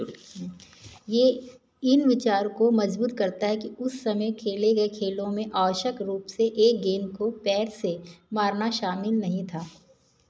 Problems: background conversations at intervals